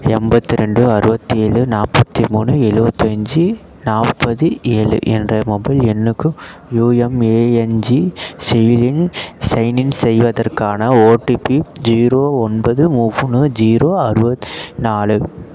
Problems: none marked